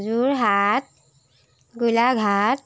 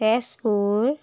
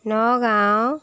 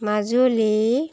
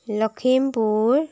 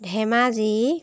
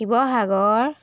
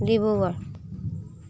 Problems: background sounds at intervals